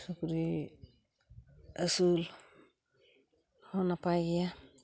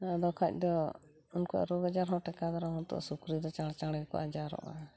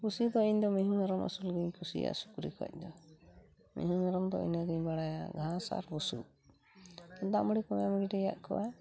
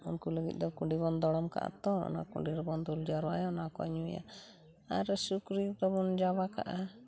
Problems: none marked